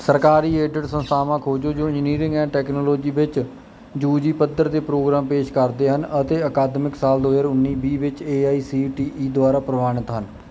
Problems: none marked